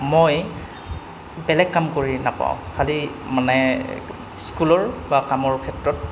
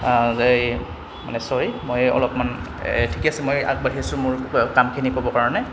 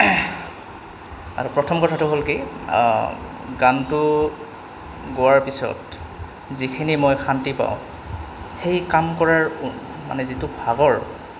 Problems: none marked